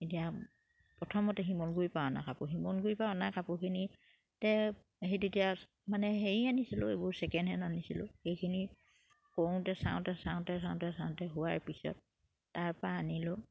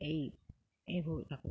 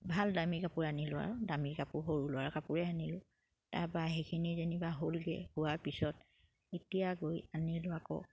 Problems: none marked